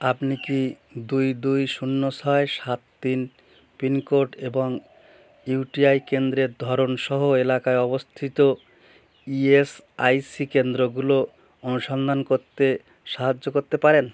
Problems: background sounds at intervals